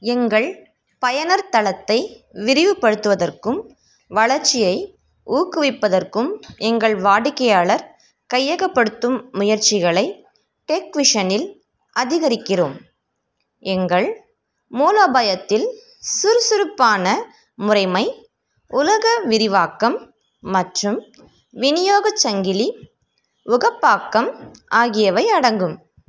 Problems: none marked